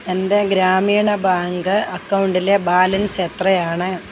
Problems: constant background noise